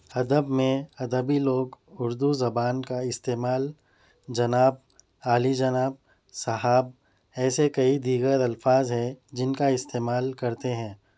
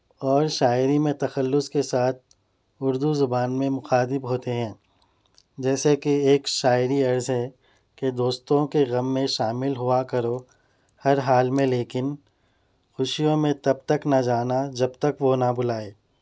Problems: none marked